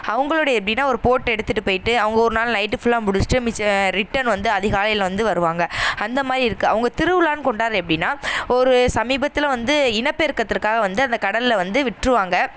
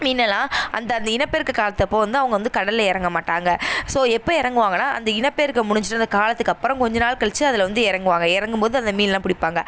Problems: none marked